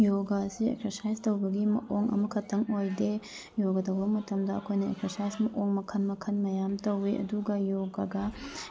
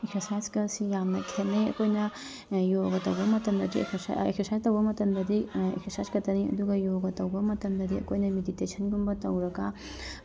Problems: background sounds at intervals